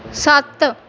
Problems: none marked